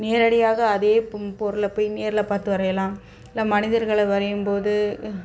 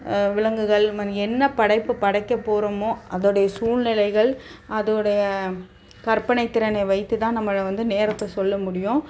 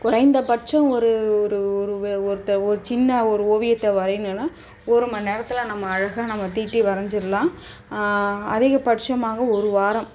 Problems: background sounds at intervals